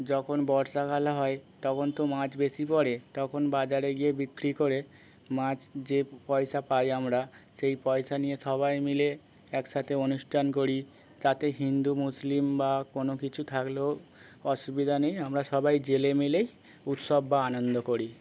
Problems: none marked